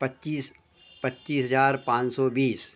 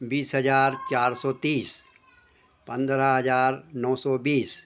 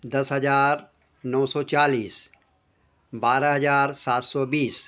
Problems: constant background noise